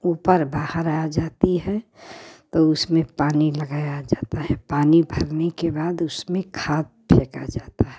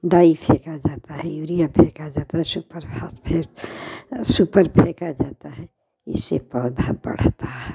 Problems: none marked